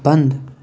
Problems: constant background noise